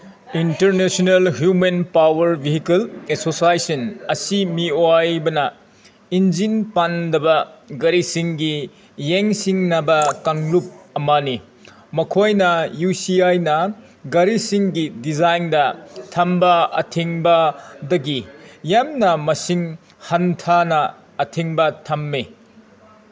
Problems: background sounds at intervals